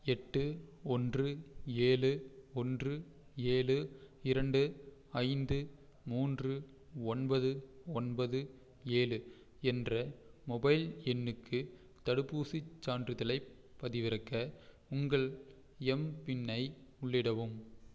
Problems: none marked